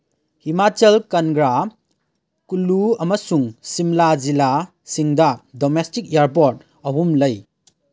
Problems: background sounds at intervals